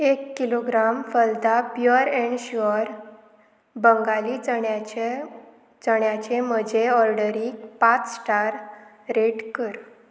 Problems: constant background noise